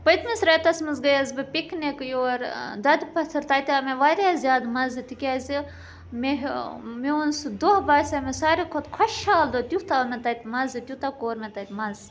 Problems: background sounds at intervals